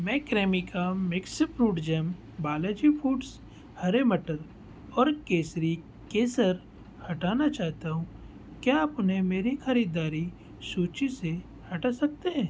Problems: none marked